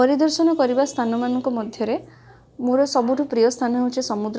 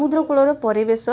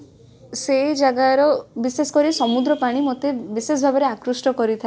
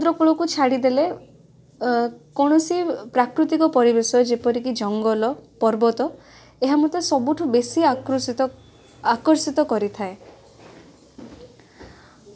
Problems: background sounds at intervals, background conversations at intervals